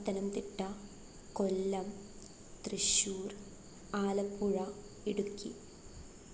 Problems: none marked